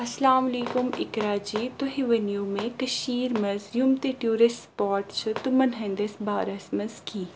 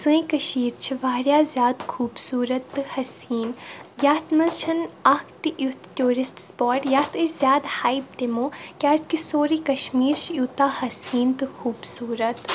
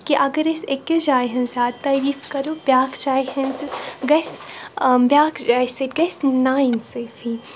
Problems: none marked